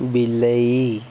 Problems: constant background noise